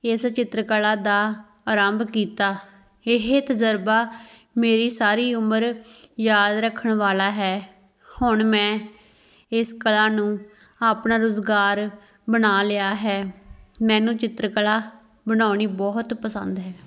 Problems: background sounds at intervals